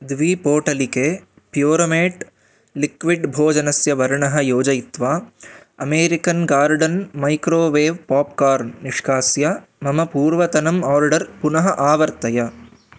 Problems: none marked